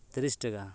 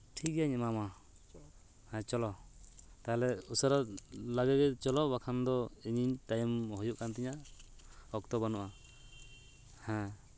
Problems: background conversations at intervals